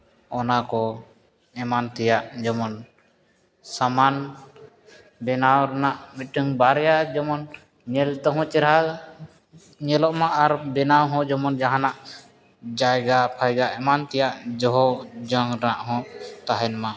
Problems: background conversations at intervals